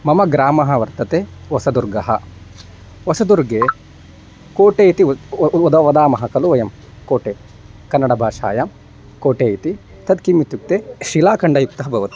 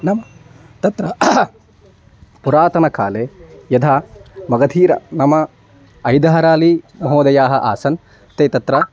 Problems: none marked